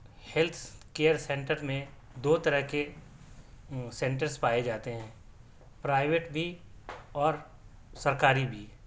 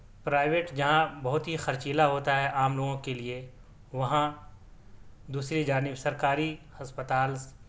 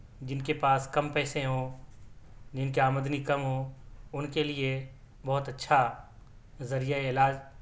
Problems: background sounds at intervals